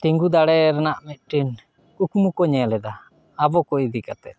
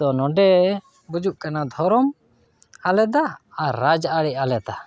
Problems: none marked